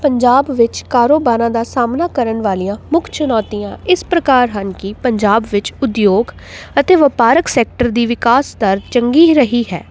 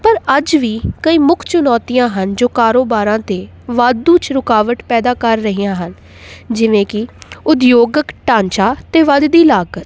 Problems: none marked